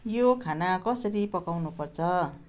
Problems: none marked